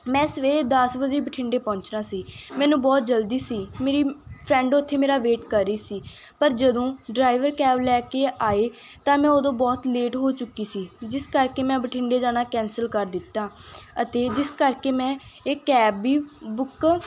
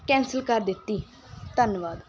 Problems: constant background noise